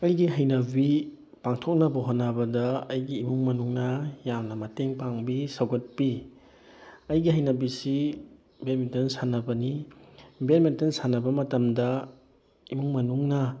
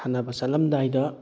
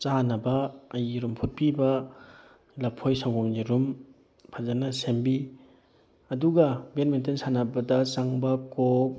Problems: none marked